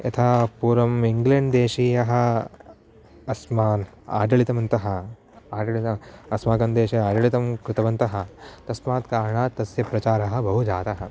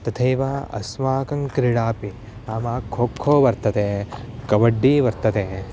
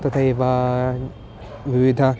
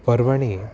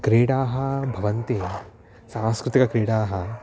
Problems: background sounds at intervals